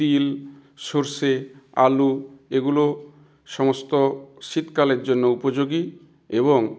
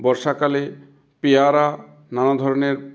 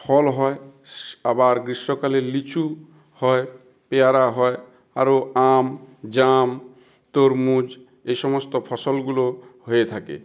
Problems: background sounds at intervals